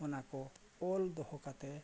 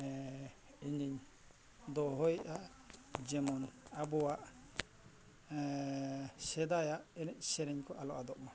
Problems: background sounds at intervals, low volume